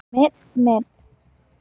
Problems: background sounds at intervals